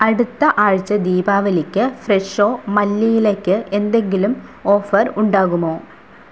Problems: none marked